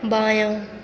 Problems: constant background noise